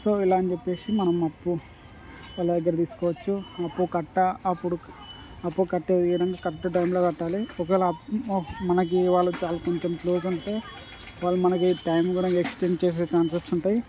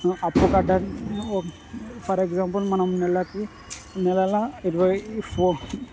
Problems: constant background noise, background conversations at intervals